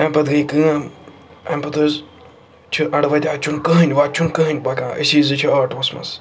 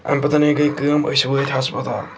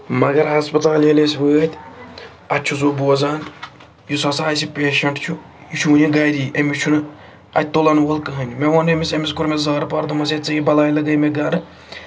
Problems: constant background noise